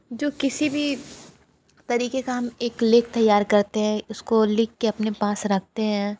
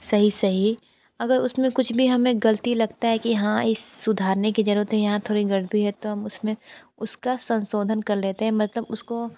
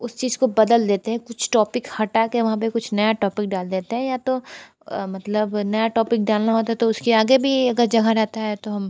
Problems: constant background noise